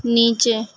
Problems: none marked